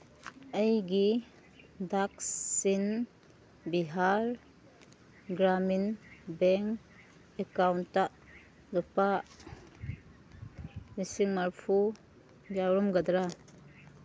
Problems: background sounds at intervals